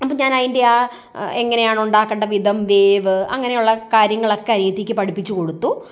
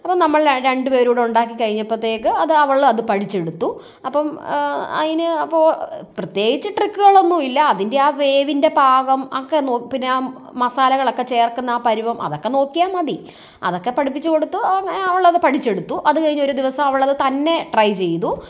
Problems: none marked